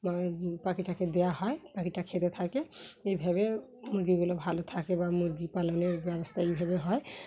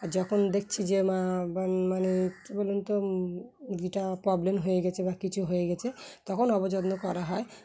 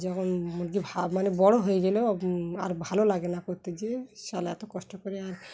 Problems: background sounds at intervals, background conversations at intervals